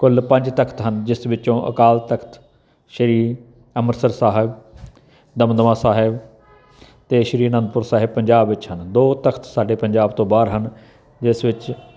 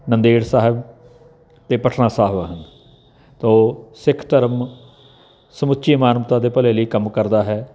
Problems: none marked